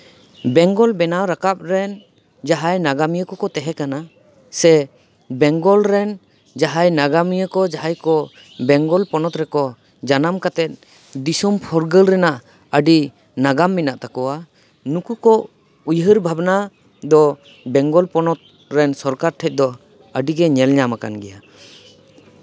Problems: none marked